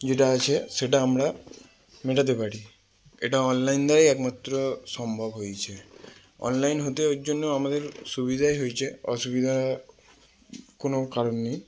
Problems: constant background noise